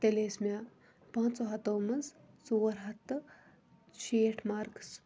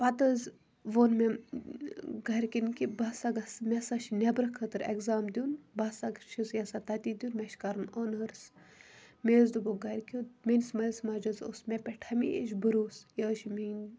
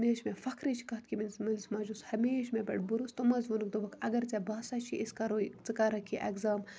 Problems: none marked